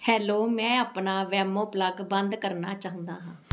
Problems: none marked